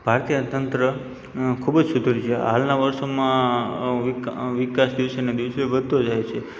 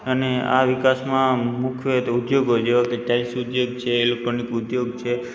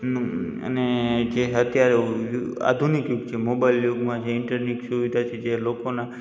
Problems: background sounds at intervals